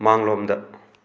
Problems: none marked